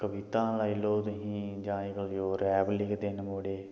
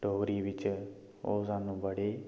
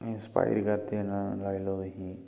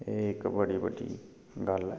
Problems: echo